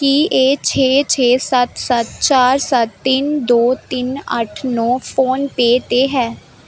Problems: background sounds at intervals